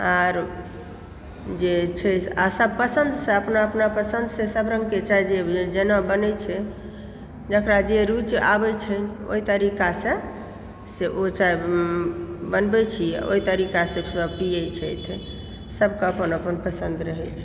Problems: background sounds at intervals